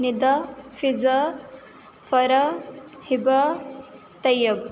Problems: none marked